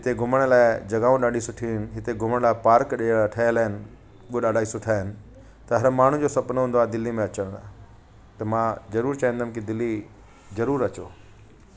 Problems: constant background noise